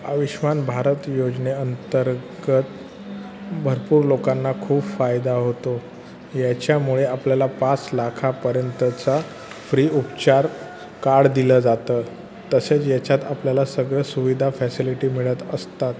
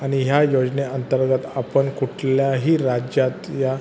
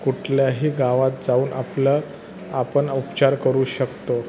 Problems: constant background noise, continuous background conversations